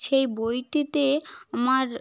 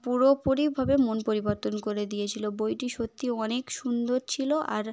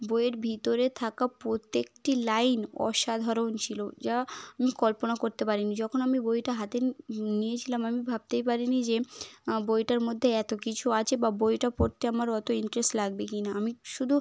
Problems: none marked